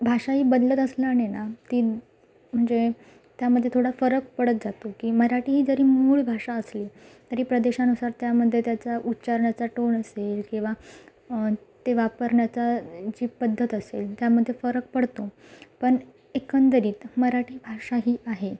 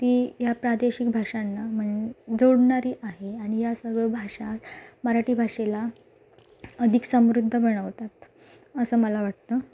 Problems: none marked